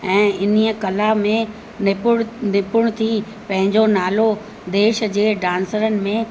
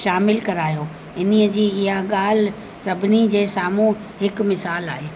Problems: constant background noise